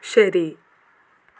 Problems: constant background noise, low volume